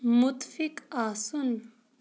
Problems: none marked